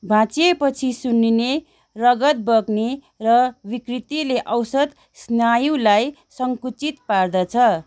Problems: none marked